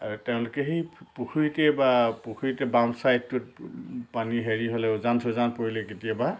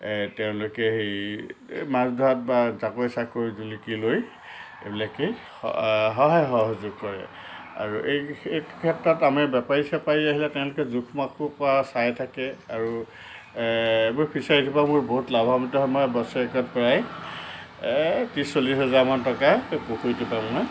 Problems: constant background noise